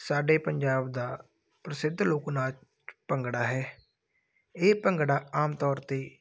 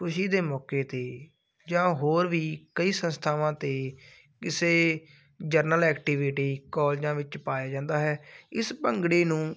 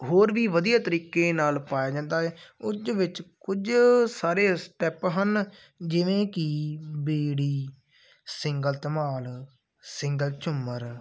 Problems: none marked